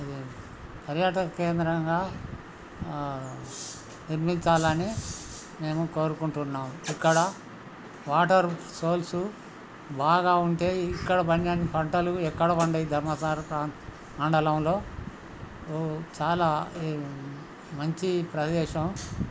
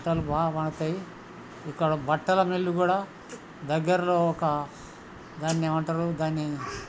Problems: constant background noise, background conversations at intervals